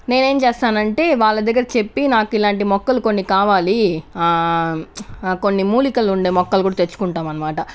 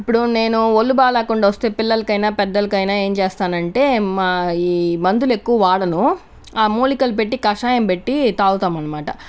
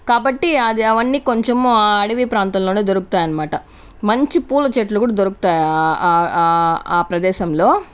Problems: none marked